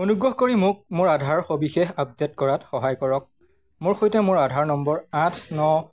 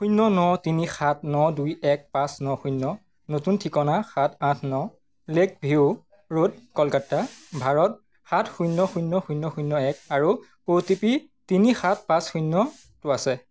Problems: background sounds at intervals